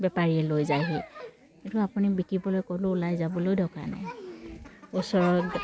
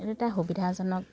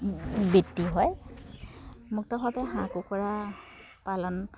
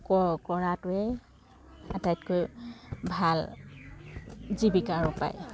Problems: background sounds at intervals